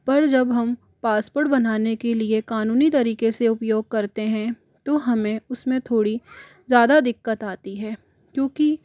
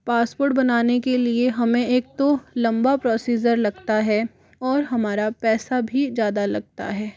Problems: background sounds at intervals, background conversations at intervals